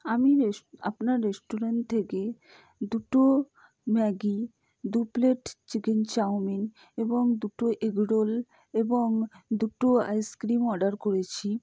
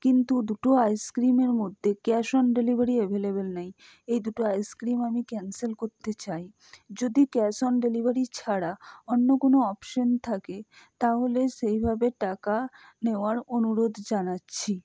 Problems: low volume